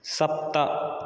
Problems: none marked